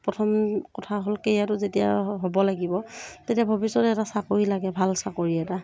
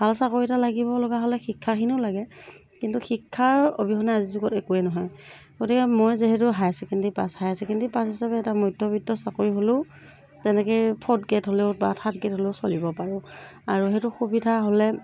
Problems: background sounds at intervals